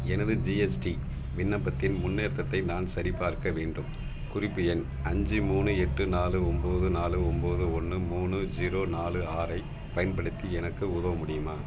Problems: background sounds at intervals